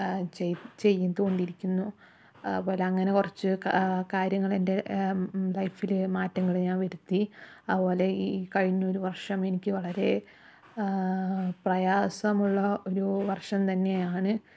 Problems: none marked